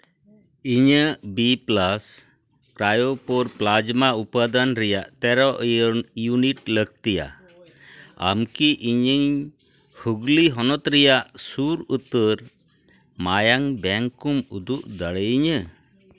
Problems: background sounds at intervals, background conversations at intervals